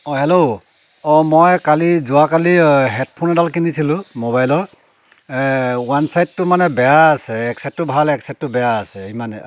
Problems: background sounds at intervals